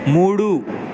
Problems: constant background noise